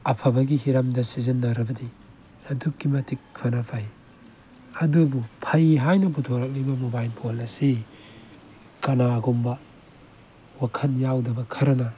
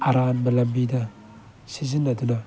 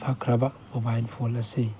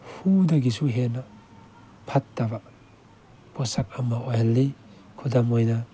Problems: background sounds at intervals